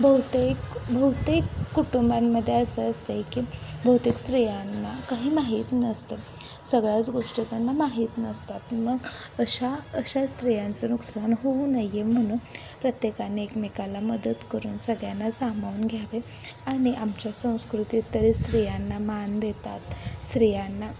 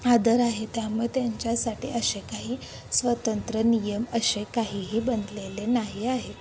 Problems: constant background noise, background conversations at intervals